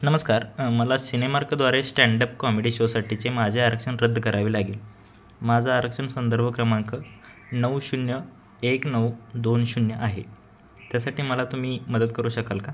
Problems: none marked